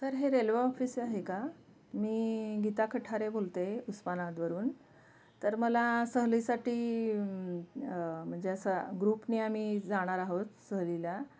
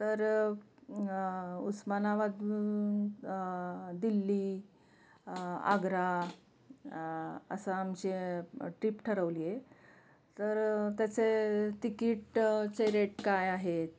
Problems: constant background noise, continuous background conversations